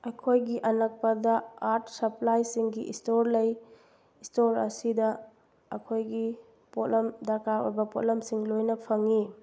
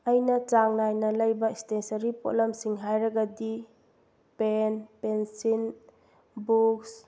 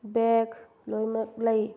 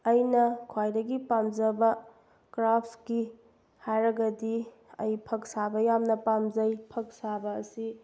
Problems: none marked